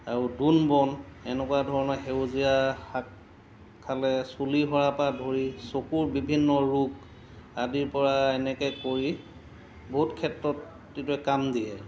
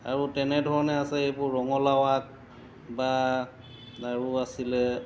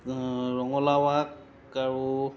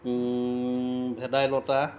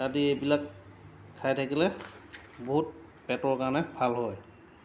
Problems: background sounds at intervals